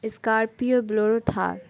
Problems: constant background noise